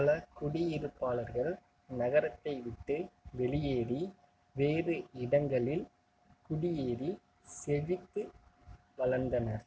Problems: constant background noise